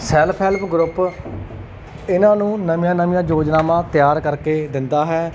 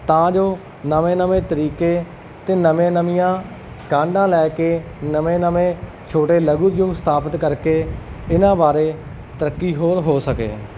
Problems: none marked